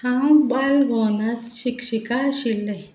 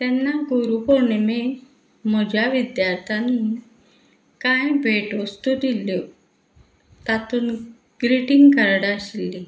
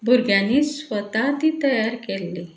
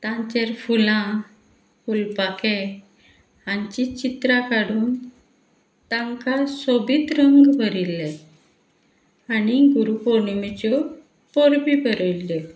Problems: background sounds at intervals